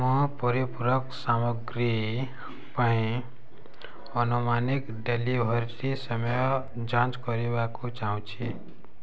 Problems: none marked